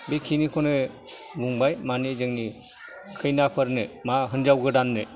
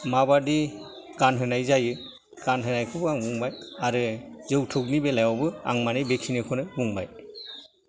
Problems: background sounds at intervals, background conversations at intervals